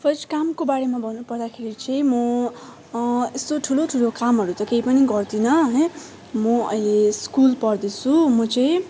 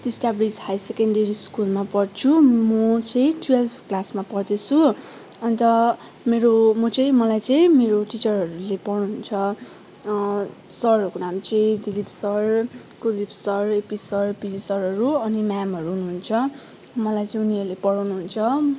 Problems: background sounds at intervals